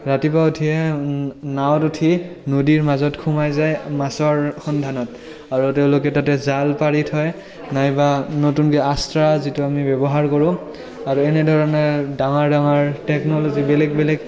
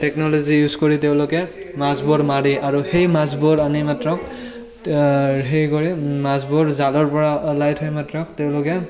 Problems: continuous background conversations